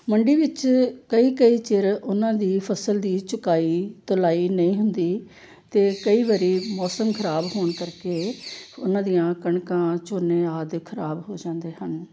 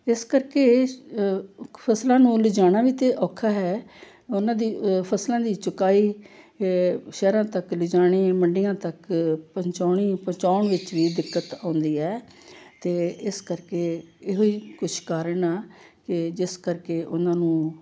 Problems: background sounds at intervals